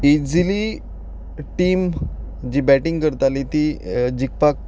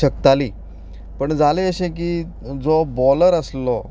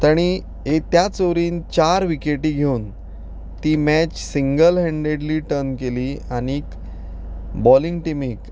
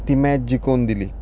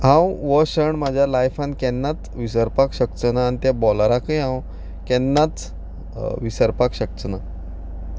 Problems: background sounds at intervals